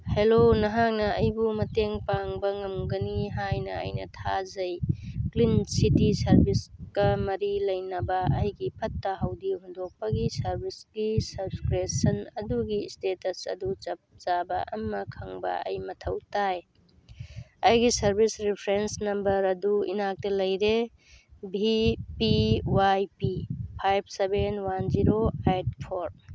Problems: background sounds at intervals